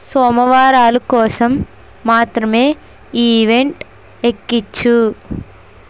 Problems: constant background noise